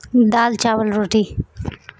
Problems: none marked